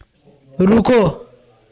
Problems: none marked